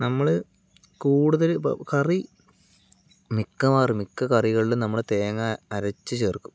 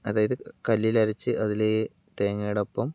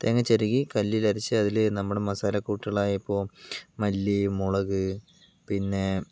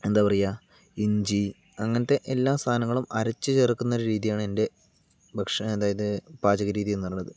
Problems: none marked